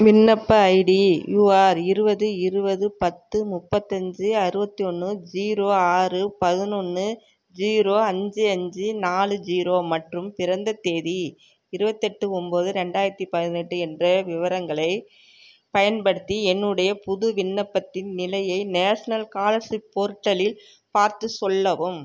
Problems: none marked